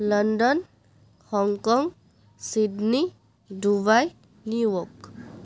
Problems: none marked